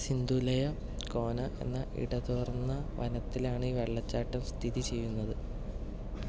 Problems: background sounds at intervals, low volume